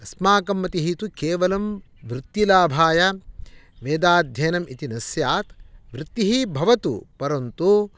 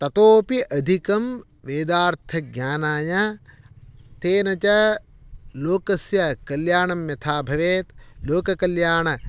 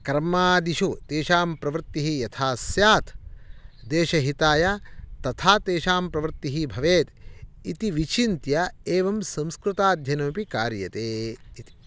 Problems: none marked